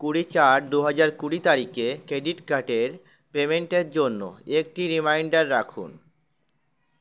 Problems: constant background noise